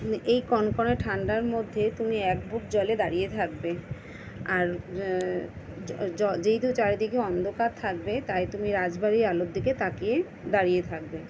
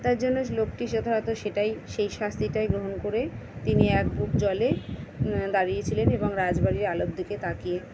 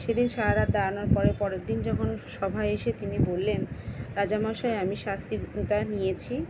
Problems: none marked